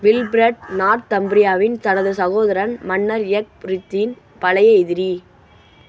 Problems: constant background noise